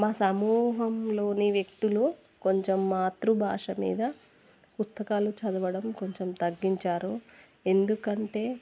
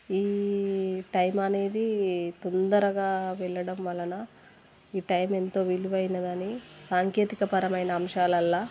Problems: constant background noise